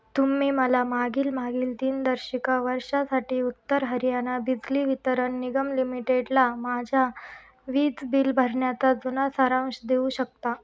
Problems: background sounds at intervals